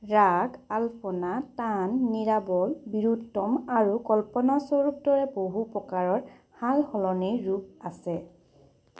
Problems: none marked